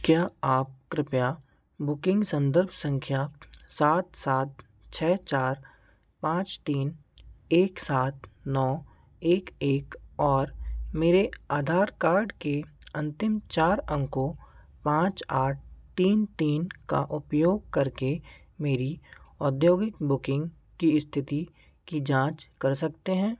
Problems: none marked